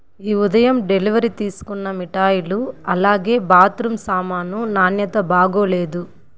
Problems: constant background noise